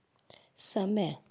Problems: none marked